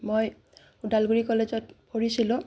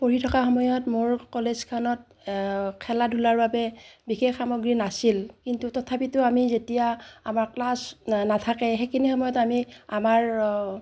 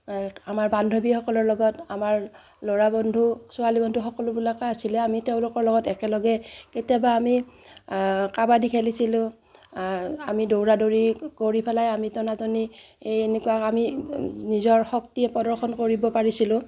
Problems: none marked